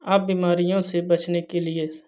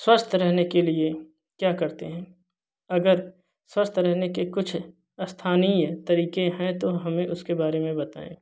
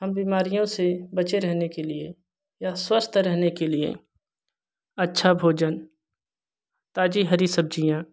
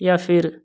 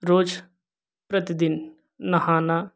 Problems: constant background noise